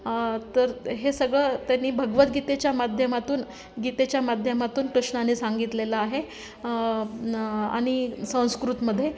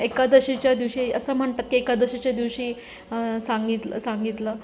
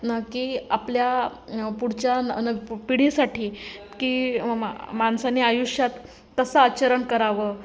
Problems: constant background noise, background conversations at intervals